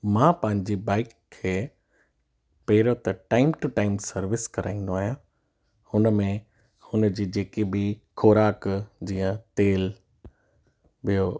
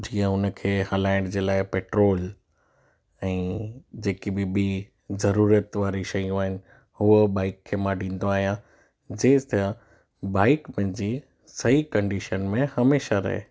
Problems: none marked